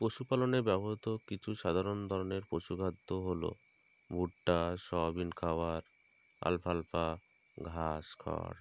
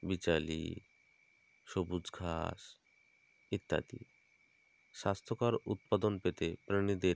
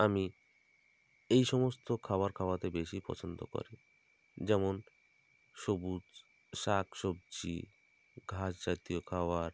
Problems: constant background noise